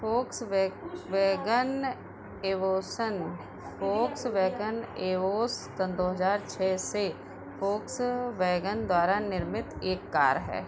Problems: none marked